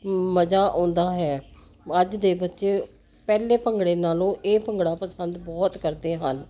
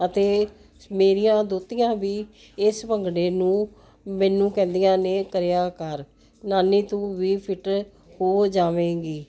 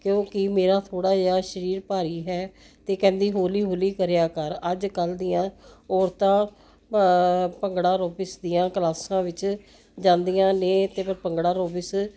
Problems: none marked